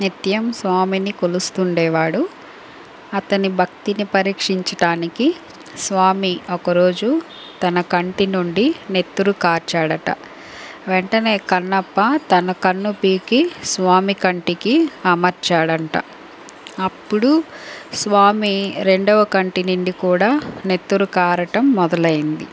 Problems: none marked